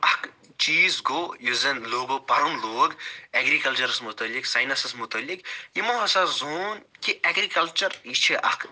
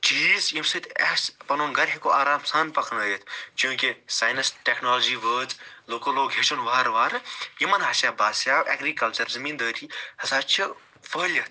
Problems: none marked